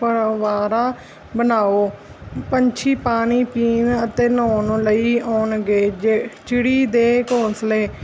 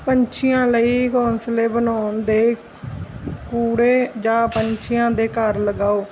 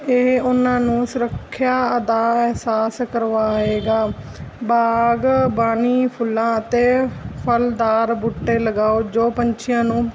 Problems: constant background noise